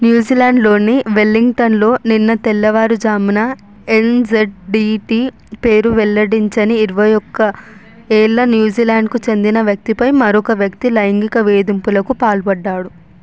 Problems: constant background noise